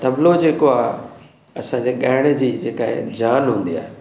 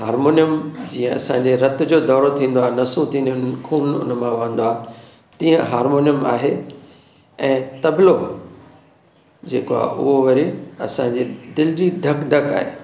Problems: none marked